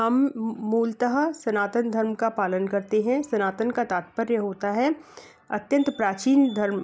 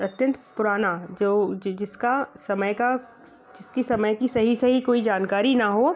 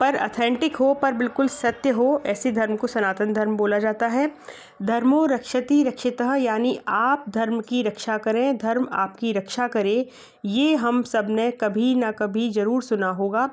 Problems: constant background noise